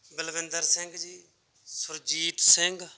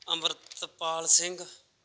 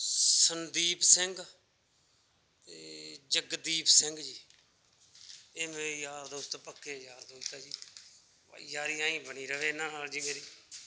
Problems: background sounds at intervals